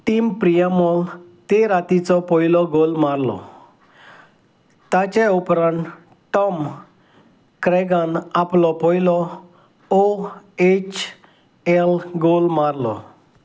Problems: none marked